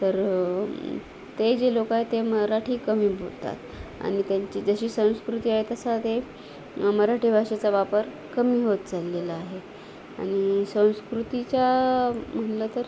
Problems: constant background noise, background conversations at intervals